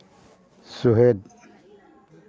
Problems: background conversations at intervals